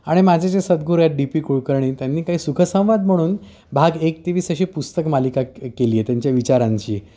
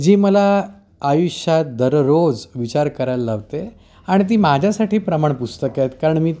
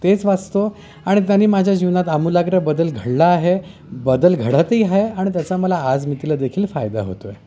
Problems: constant background noise